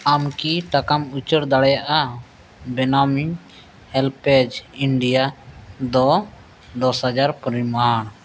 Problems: constant background noise